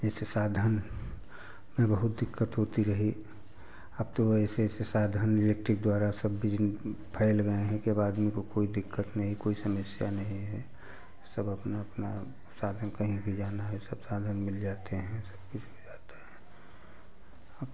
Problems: none marked